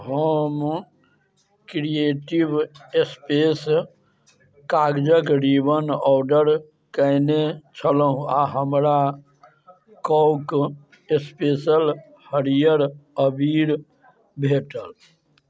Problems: none marked